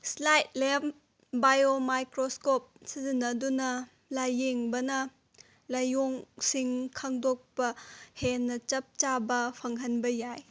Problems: none marked